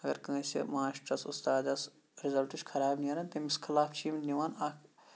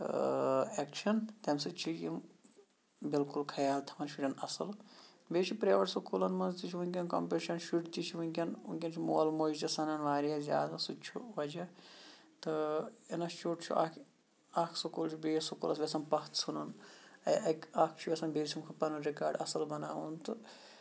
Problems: background sounds at intervals